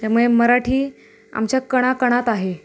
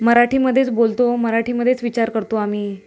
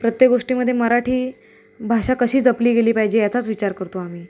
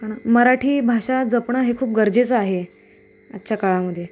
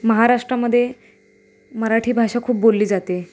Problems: constant background noise